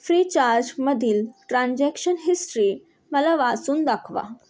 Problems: constant background noise